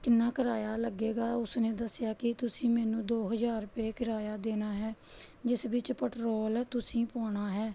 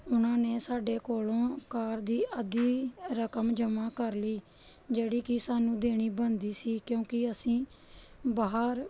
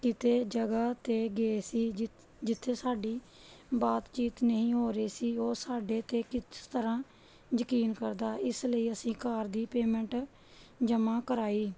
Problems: background sounds at intervals